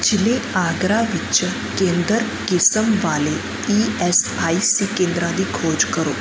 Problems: constant background noise